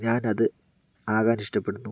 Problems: low volume